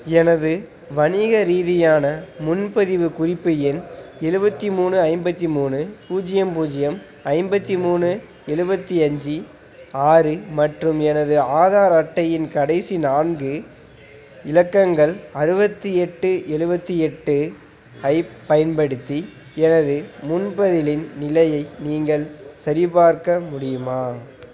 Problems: constant background noise